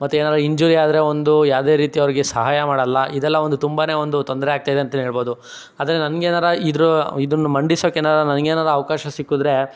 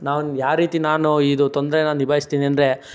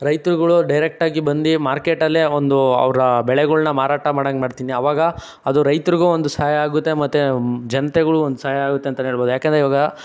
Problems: none marked